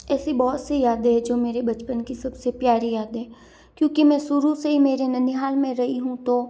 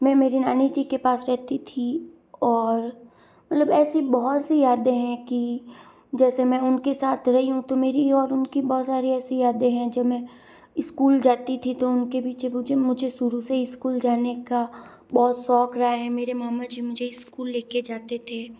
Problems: none marked